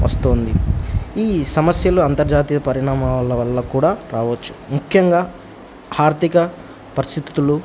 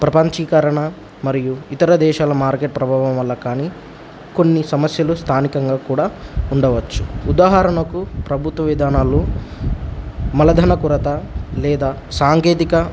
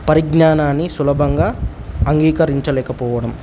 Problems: none marked